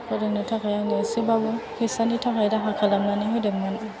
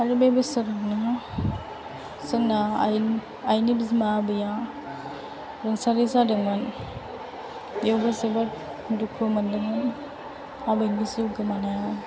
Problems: low volume